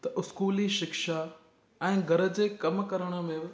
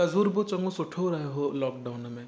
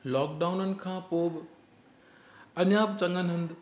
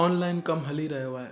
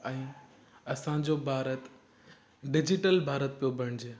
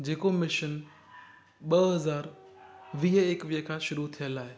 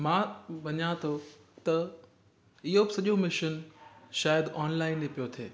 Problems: constant background noise, echo